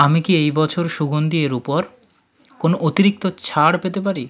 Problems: background conversations at intervals